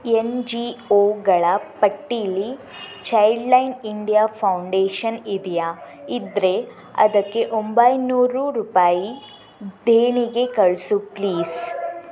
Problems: background sounds at intervals